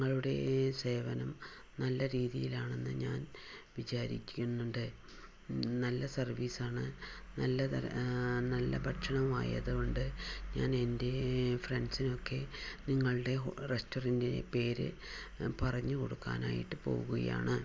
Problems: low volume